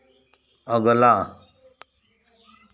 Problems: background sounds at intervals